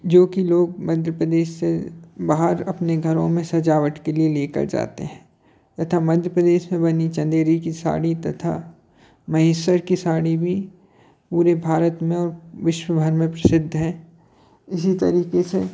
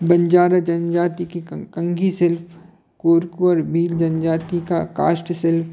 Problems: constant background noise